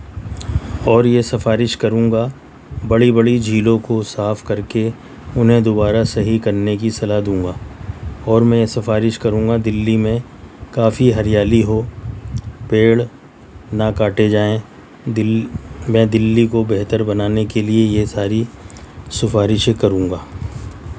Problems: none marked